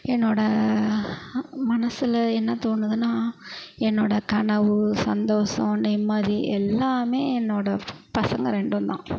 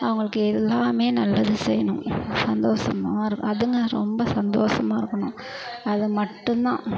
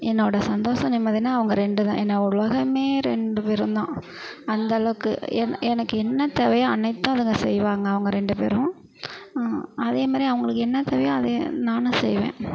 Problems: constant background noise